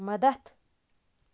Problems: constant background noise